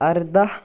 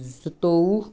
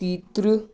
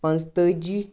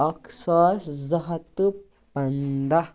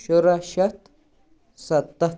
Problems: none marked